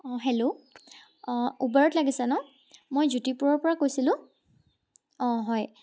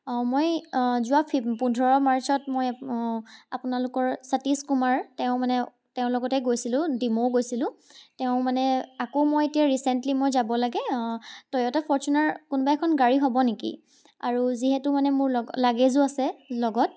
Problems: background sounds at intervals